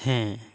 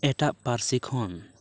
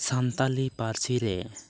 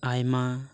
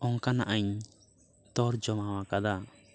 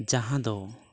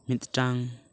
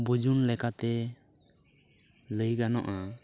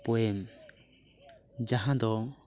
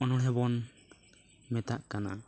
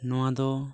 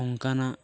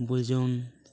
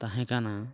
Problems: none marked